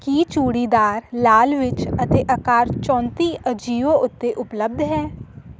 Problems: constant background noise